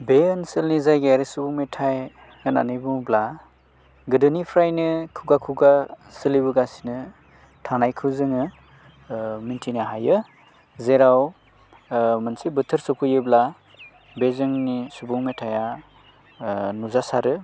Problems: constant background noise